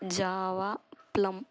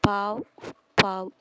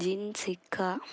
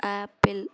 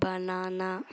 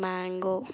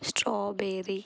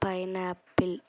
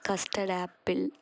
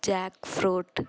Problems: none marked